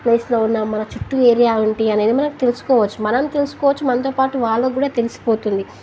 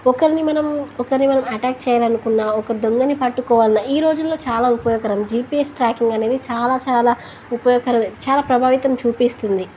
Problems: constant background noise